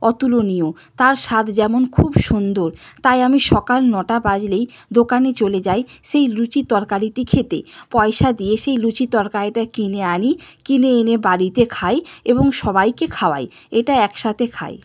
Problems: none marked